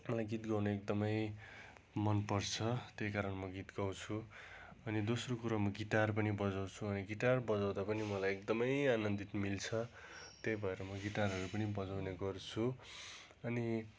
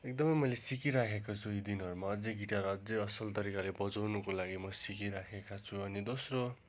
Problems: constant background noise